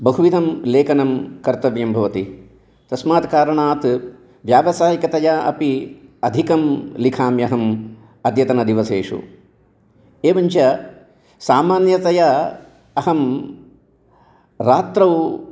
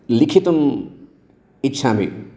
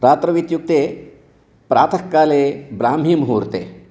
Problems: none marked